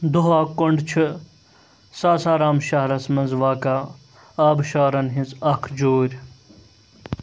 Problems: constant background noise